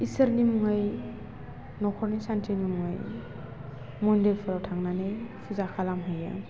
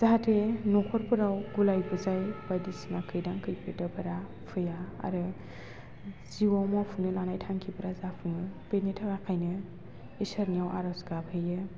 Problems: constant background noise